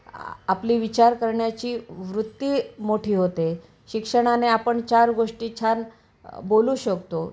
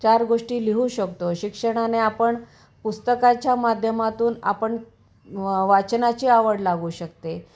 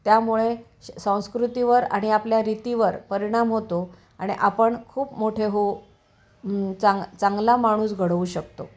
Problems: constant background noise